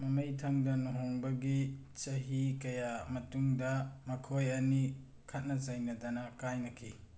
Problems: none marked